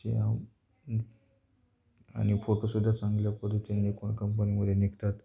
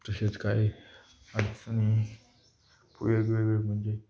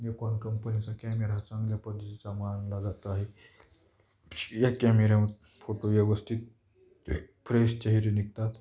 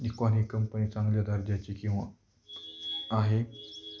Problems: background sounds at intervals